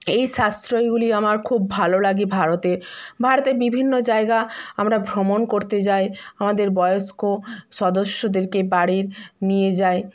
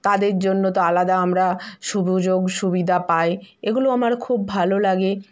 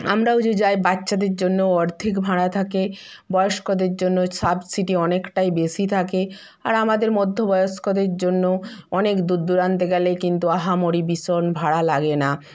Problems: none marked